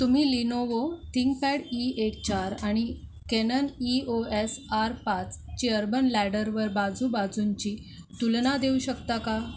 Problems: constant background noise